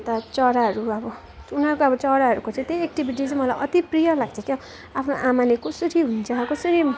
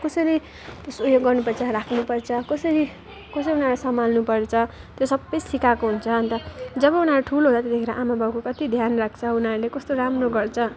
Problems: constant background noise, continuous background conversations